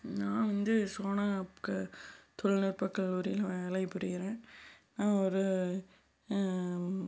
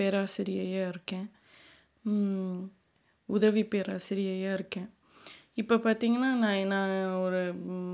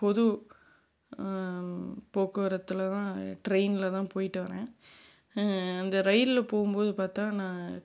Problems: background sounds at intervals